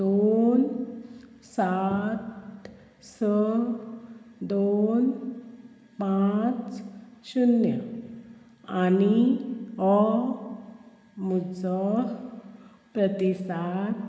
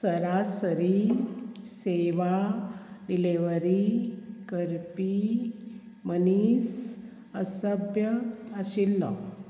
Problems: constant background noise